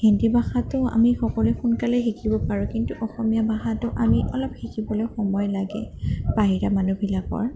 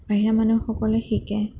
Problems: constant background noise